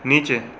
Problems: none marked